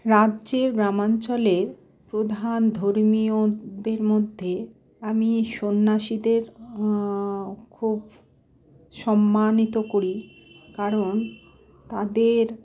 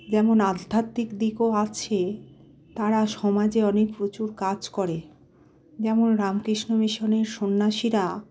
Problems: constant background noise